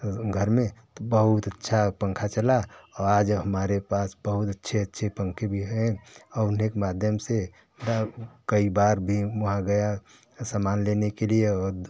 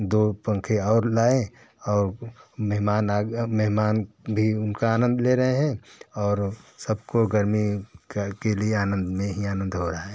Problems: none marked